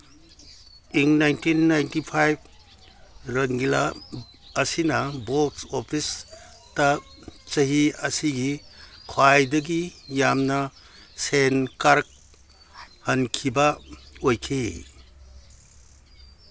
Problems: none marked